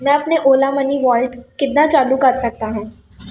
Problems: background sounds at intervals